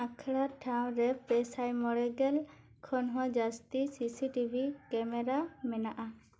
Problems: none marked